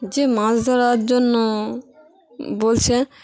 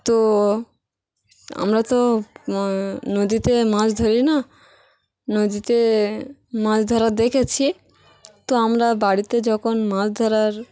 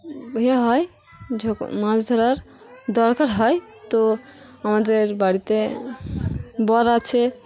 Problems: constant background noise, continuous background conversations